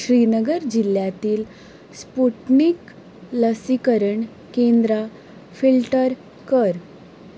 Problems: none marked